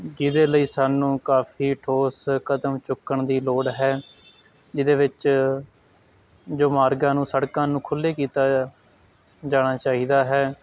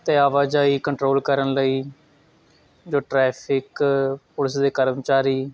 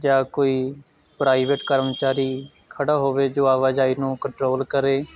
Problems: constant background noise